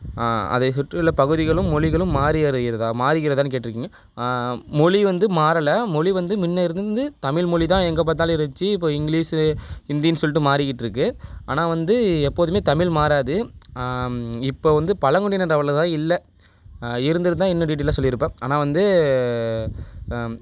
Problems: none marked